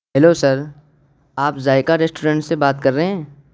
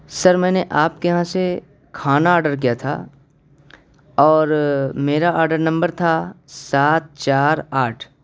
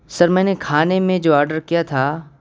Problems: constant background noise